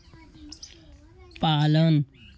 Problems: background sounds at intervals